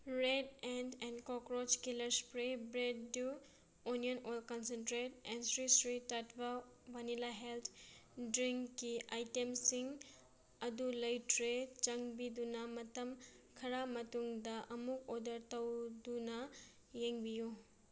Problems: none marked